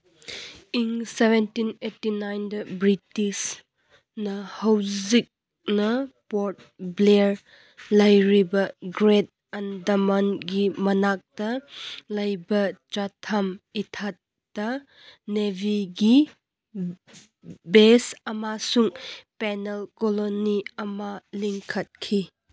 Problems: none marked